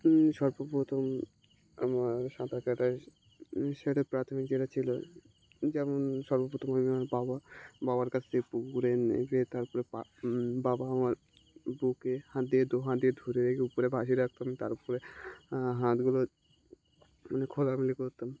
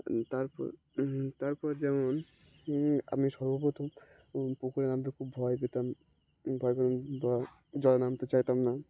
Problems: constant background noise